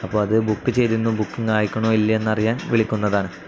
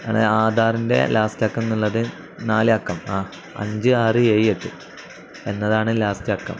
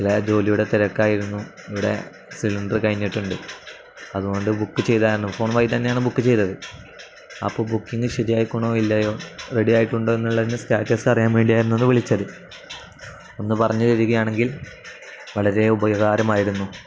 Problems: constant background noise